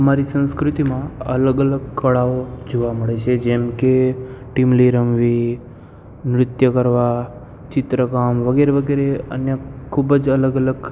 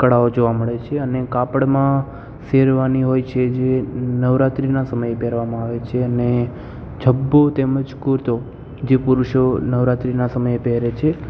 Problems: constant background noise